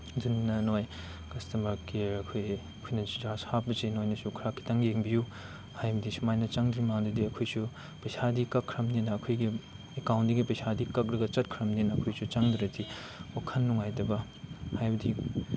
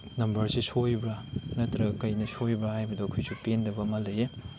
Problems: constant background noise